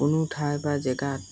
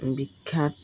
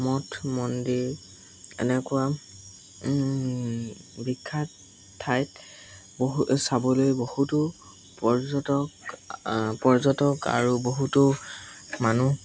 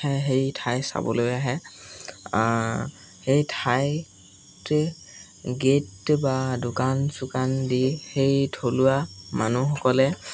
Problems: constant background noise